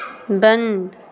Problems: none marked